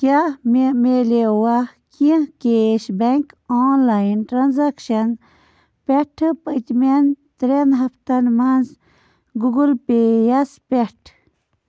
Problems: constant background noise